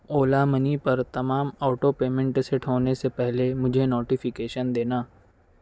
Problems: none marked